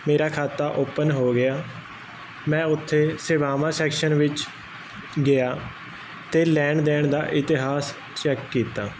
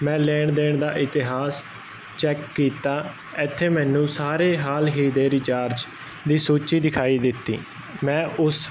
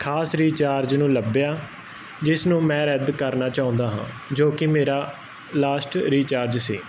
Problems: constant background noise